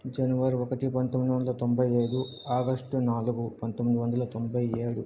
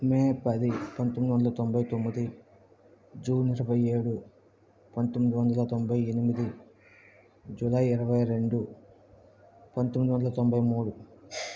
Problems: background sounds at intervals, low volume